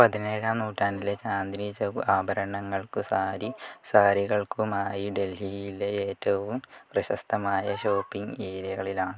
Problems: background conversations at intervals, low volume